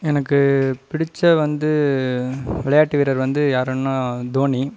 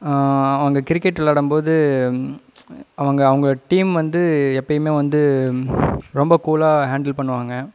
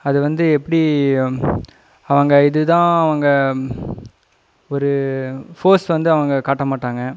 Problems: none marked